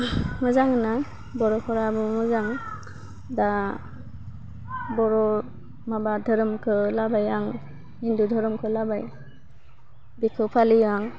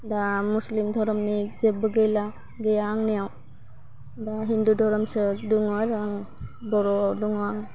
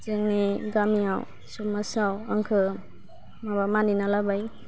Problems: none marked